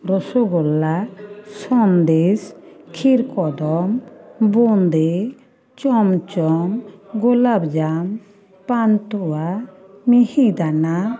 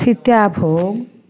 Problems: continuous background conversations